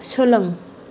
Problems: low volume